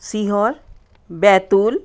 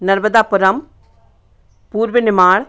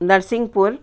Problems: constant background noise, background conversations at intervals